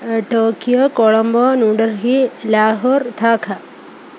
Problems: none marked